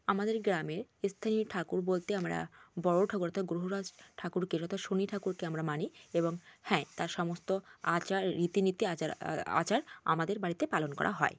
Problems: constant background noise